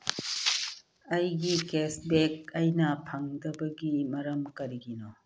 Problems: background sounds at intervals, low volume